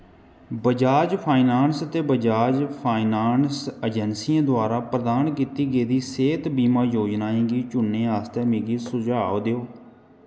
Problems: echo